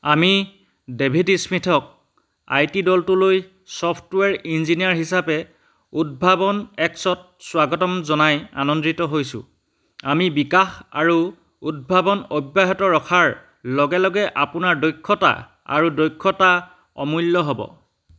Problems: none marked